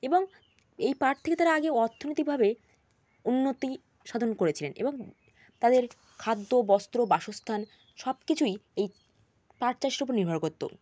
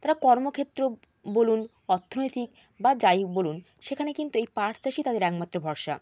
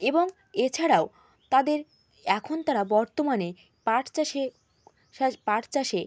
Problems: constant background noise